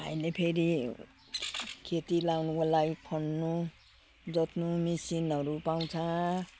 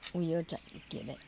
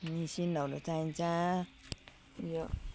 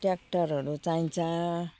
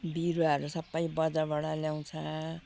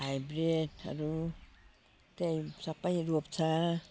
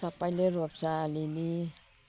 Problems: constant background noise